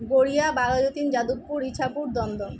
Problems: constant background noise